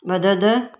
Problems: none marked